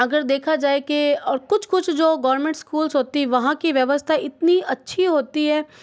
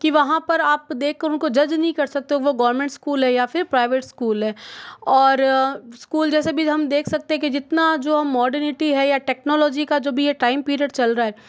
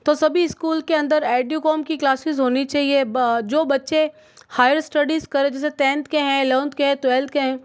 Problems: none marked